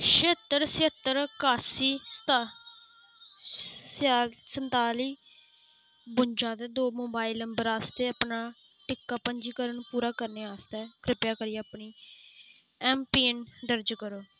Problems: constant background noise